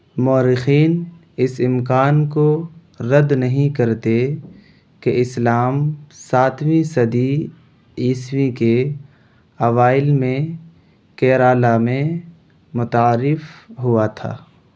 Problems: none marked